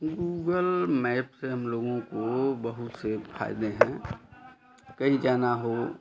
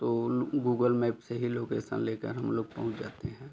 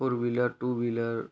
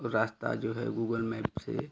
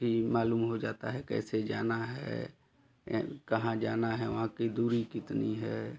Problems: none marked